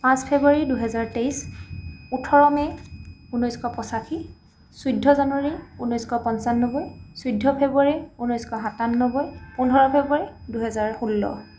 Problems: background sounds at intervals